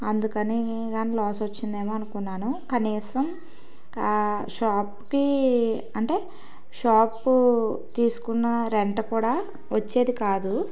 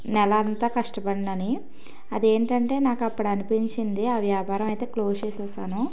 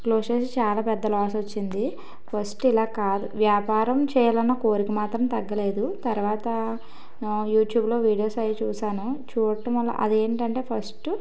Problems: none marked